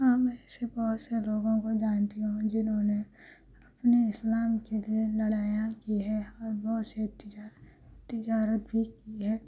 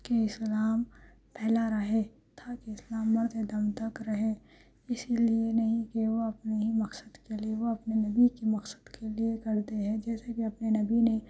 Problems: background sounds at intervals, low volume